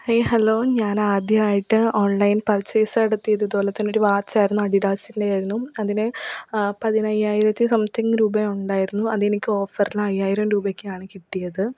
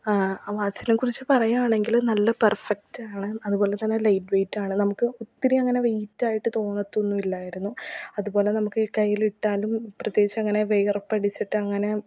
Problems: background sounds at intervals, low volume